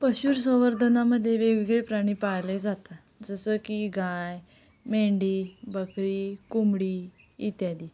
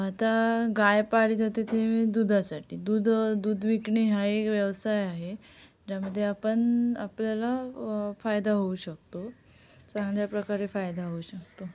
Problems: none marked